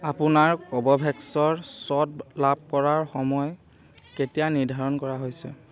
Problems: none marked